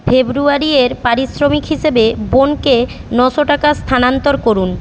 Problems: constant background noise